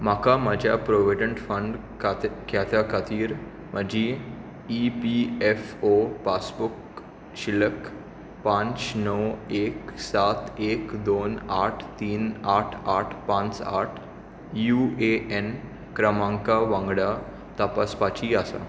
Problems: constant background noise